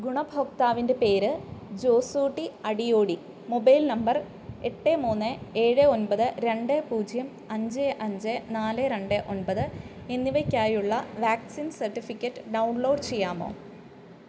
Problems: none marked